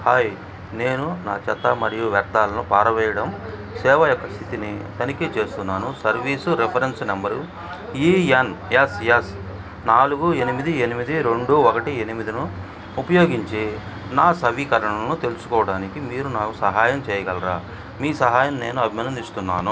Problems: background conversations at intervals